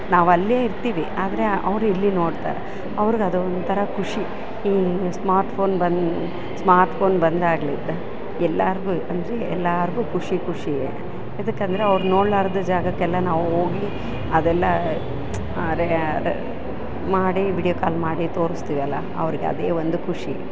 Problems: none marked